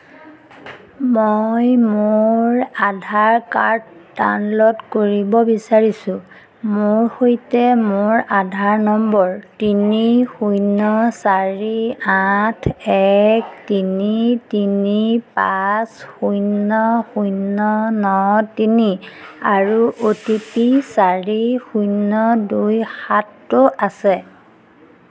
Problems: none marked